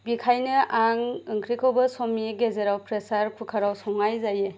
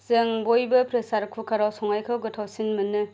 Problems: none marked